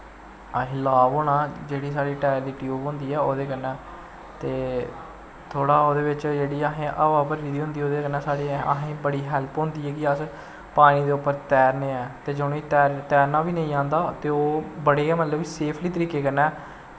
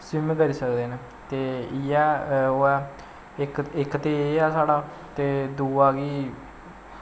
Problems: constant background noise